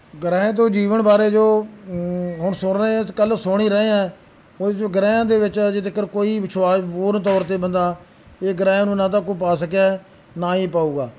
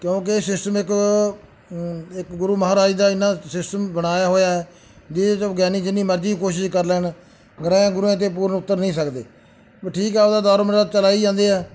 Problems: background sounds at intervals